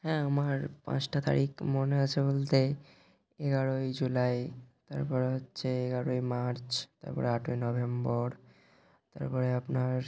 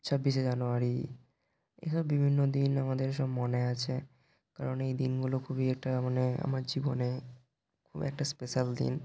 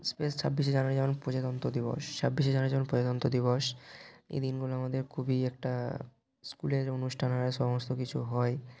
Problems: constant background noise